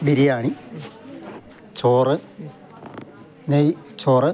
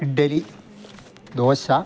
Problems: none marked